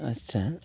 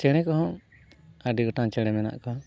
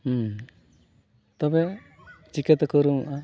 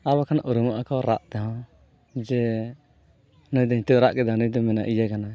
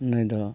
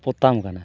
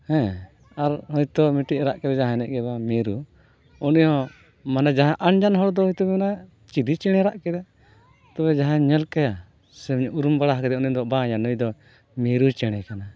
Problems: none marked